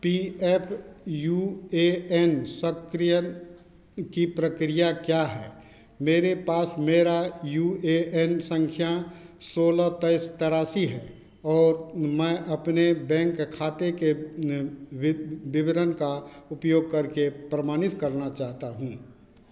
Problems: constant background noise